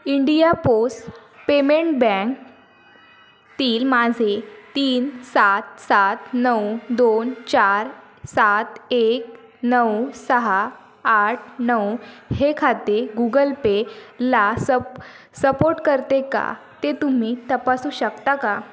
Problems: background sounds at intervals